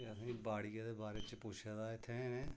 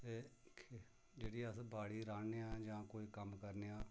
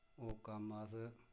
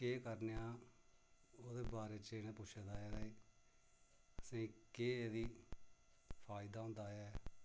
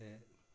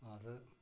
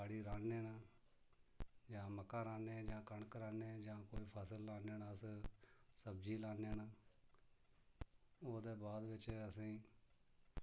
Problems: low volume